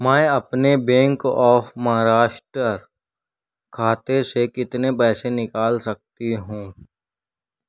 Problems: none marked